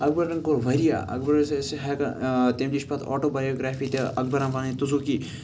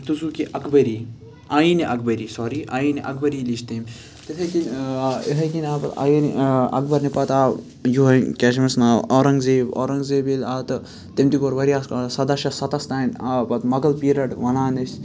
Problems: constant background noise, background conversations at intervals